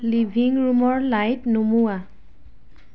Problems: background conversations at intervals